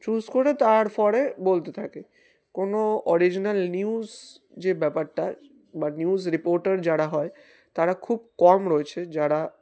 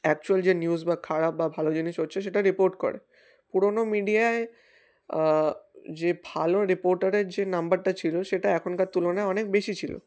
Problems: constant background noise